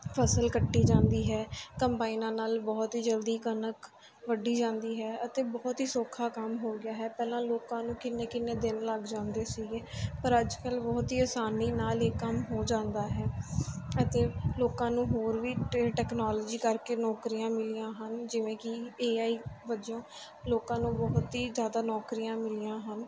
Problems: none marked